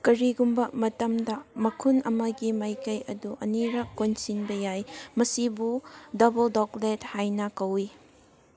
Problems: background sounds at intervals, background conversations at intervals